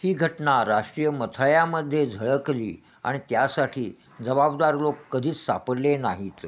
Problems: constant background noise